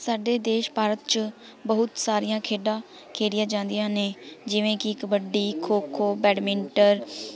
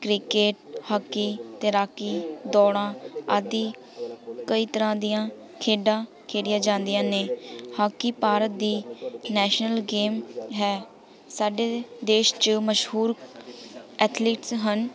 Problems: none marked